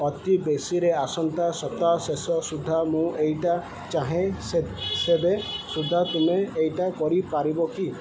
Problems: constant background noise